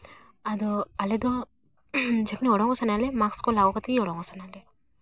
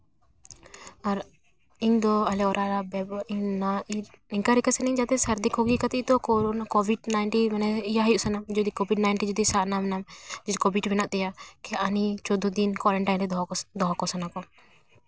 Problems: background sounds at intervals